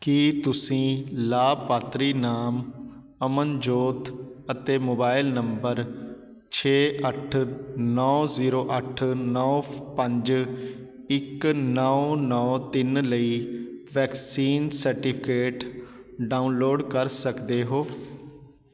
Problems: background sounds at intervals